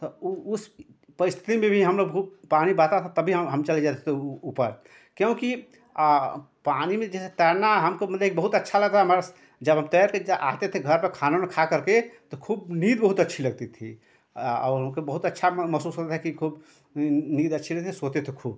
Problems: none marked